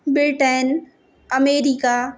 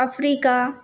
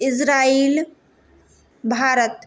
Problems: constant background noise